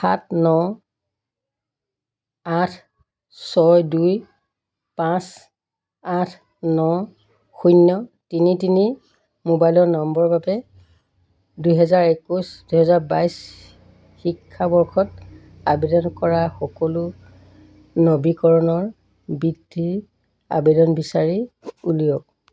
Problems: constant background noise